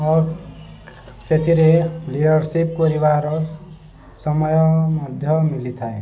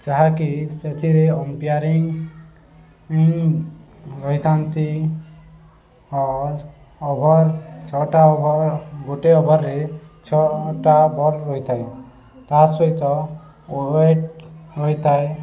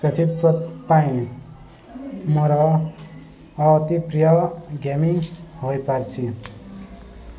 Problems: constant background noise, continuous background conversations